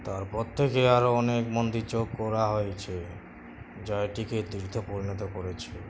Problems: constant background noise